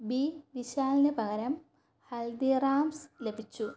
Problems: low volume